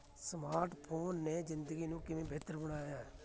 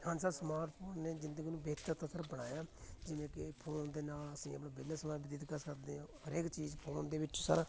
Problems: constant background noise, continuous background conversations